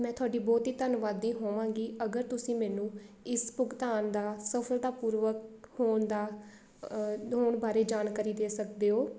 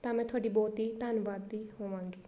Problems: background sounds at intervals